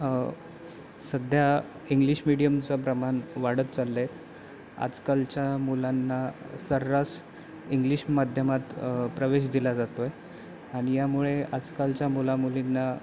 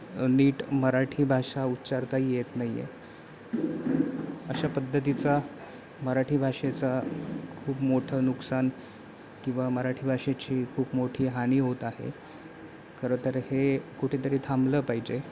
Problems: constant background noise, continuous background conversations